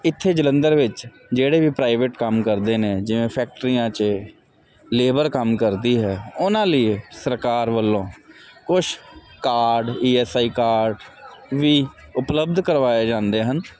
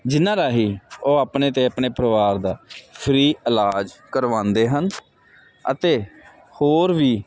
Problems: constant background noise